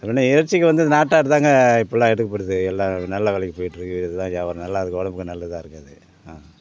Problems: constant background noise, continuous background conversations